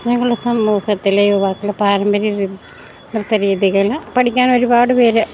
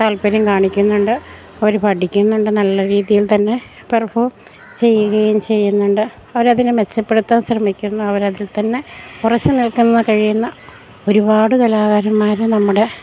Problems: none marked